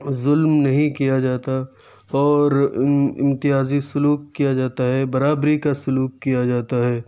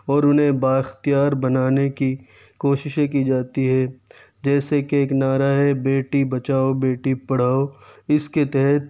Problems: none marked